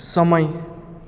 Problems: constant background noise